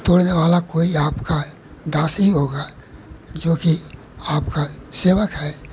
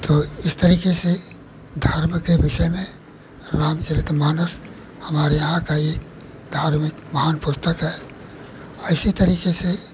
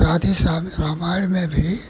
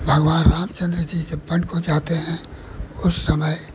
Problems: none marked